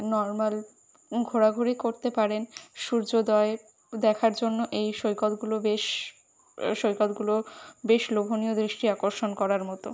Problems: constant background noise